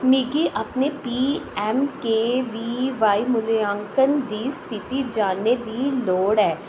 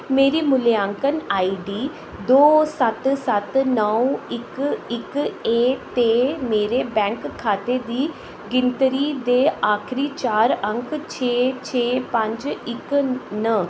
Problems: echo